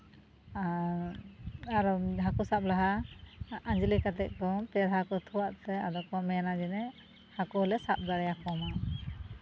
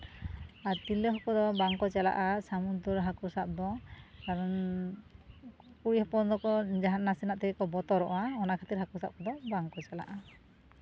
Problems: none marked